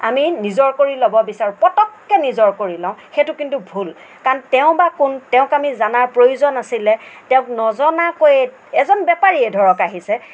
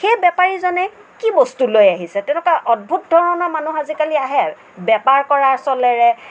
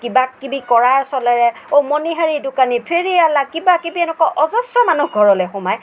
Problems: none marked